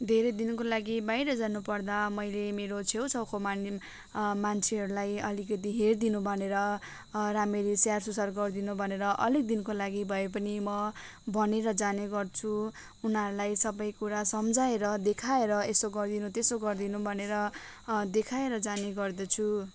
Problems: none marked